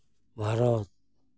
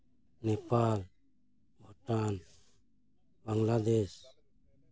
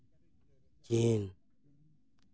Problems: none marked